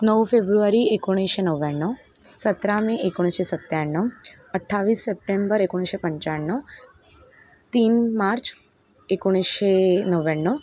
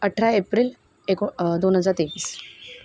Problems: constant background noise